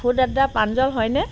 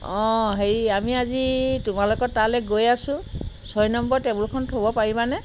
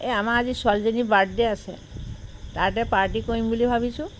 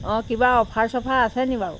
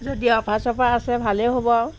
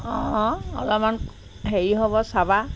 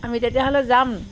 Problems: background sounds at intervals